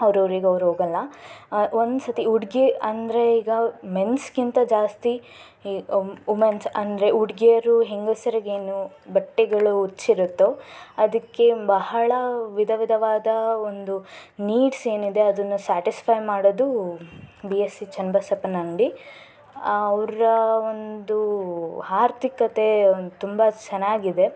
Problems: background sounds at intervals